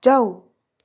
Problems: none marked